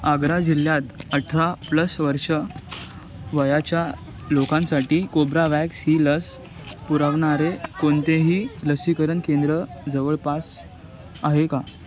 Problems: background sounds at intervals